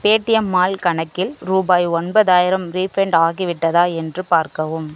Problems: none marked